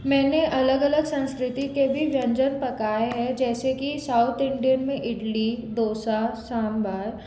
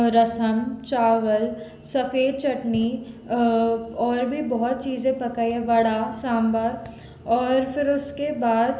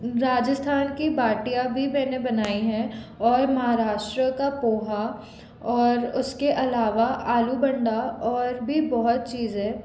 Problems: background sounds at intervals